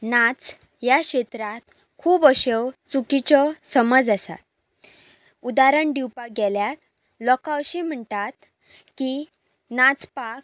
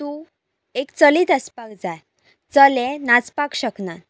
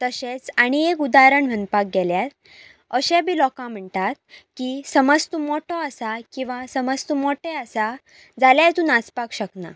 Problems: none marked